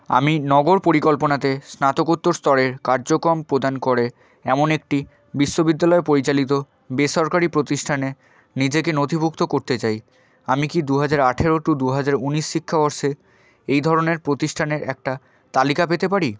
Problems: background sounds at intervals